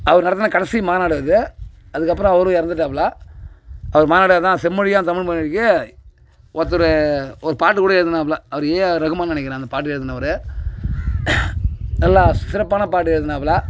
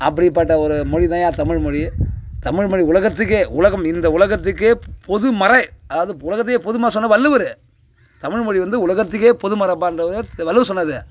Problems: background sounds at intervals, background conversations at intervals